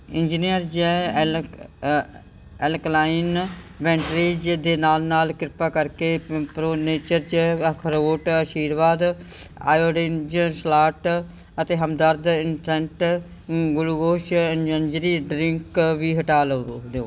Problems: background sounds at intervals